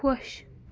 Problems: constant background noise